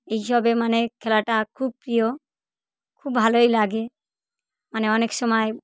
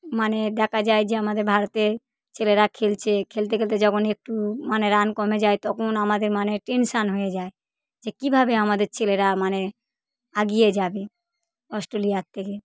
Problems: none marked